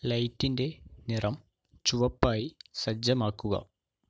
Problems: none marked